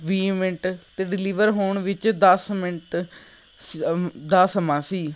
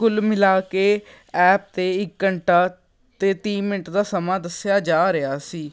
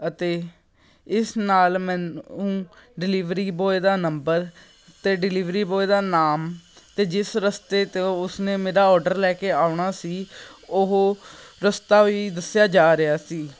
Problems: background sounds at intervals